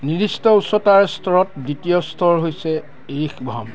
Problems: continuous background conversations